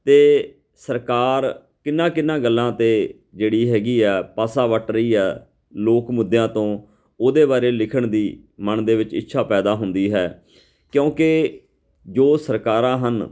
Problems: none marked